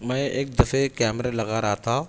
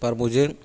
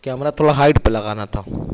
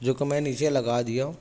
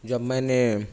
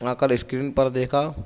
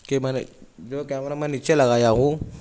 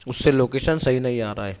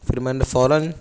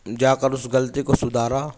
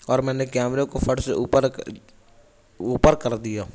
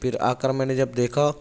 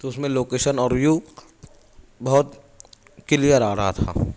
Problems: none marked